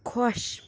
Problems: background sounds at intervals